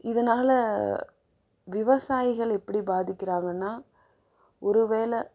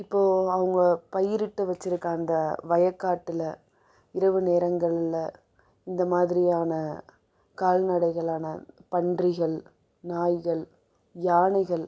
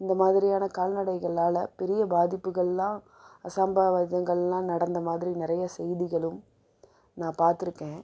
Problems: low volume